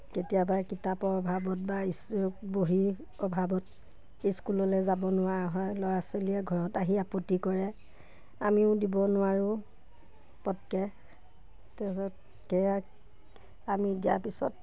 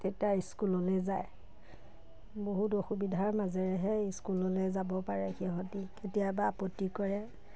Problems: none marked